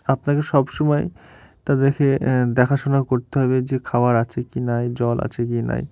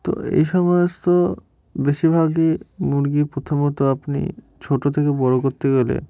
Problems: none marked